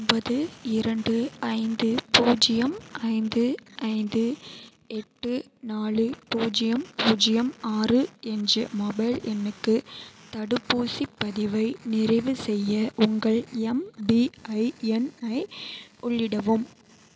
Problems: none marked